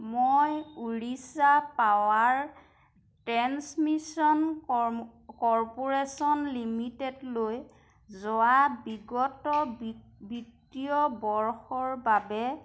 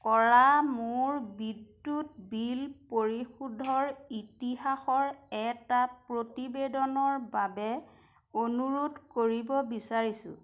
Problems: none marked